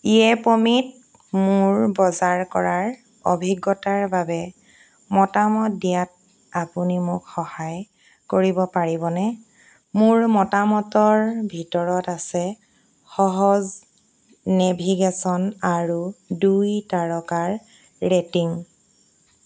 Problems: constant background noise